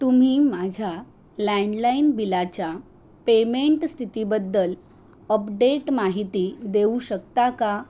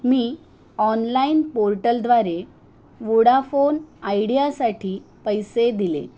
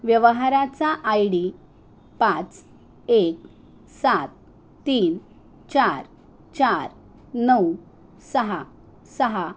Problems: constant background noise